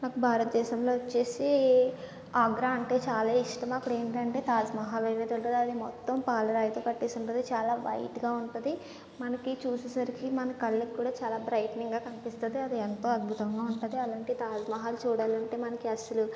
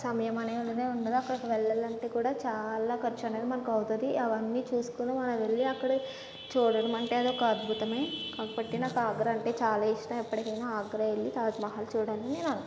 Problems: background sounds at intervals, low volume